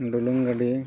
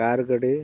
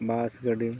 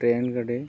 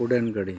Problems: none marked